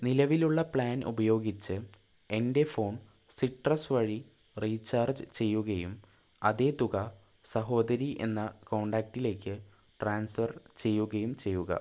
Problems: low volume